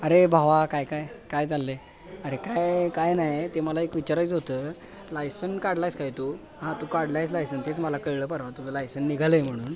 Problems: continuous background conversations